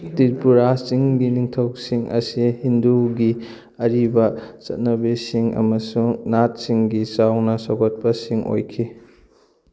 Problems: none marked